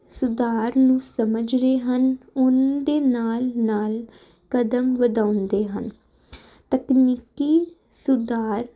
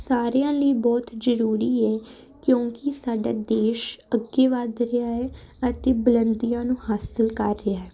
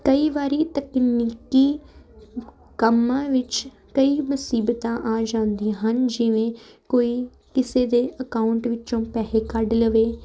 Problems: none marked